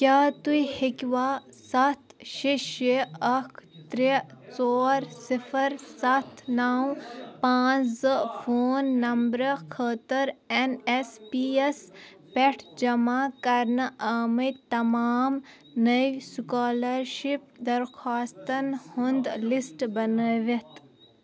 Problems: none marked